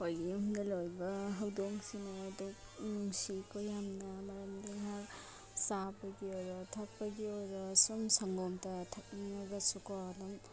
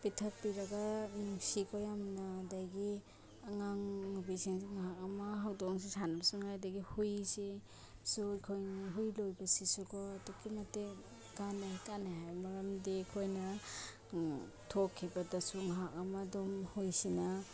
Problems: background sounds at intervals